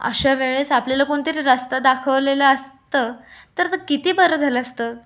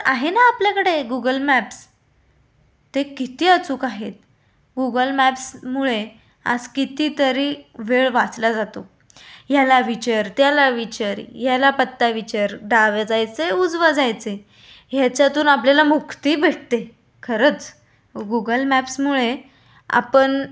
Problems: none marked